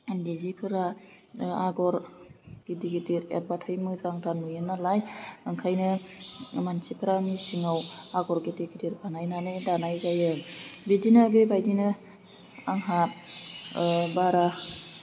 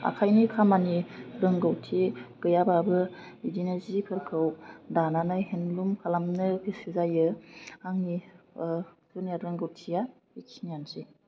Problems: low volume